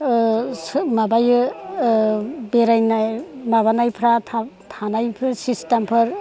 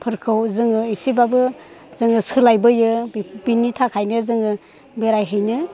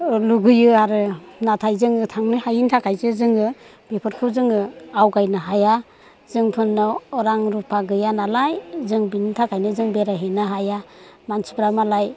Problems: constant background noise